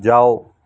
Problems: none marked